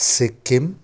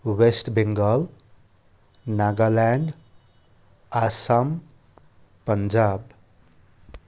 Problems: background sounds at intervals